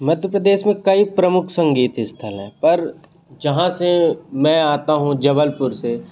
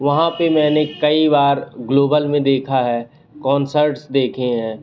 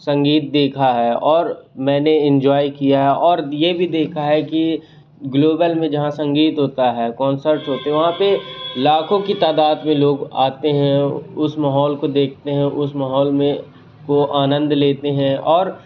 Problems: constant background noise